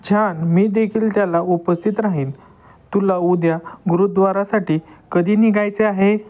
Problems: background sounds at intervals